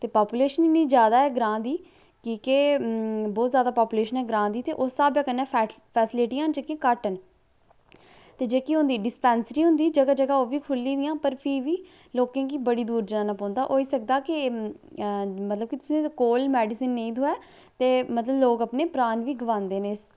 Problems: low volume